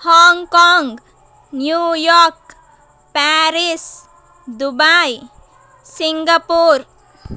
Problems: none marked